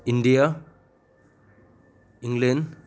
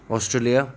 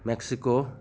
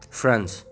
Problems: none marked